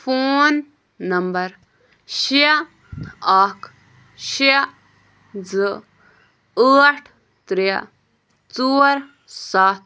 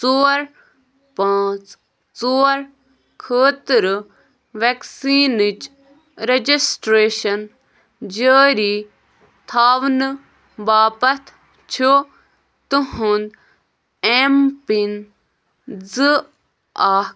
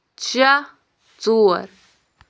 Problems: background sounds at intervals